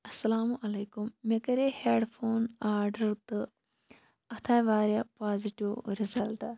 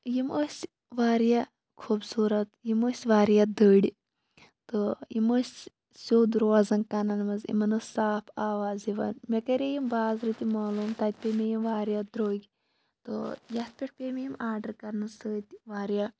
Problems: background sounds at intervals